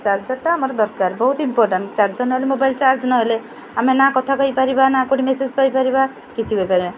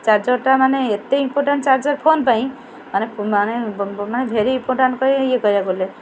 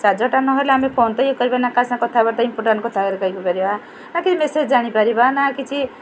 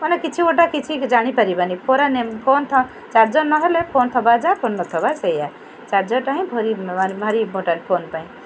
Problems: constant background noise, continuous background conversations